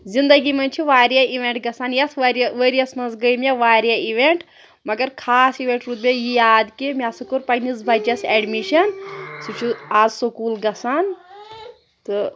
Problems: background conversations at intervals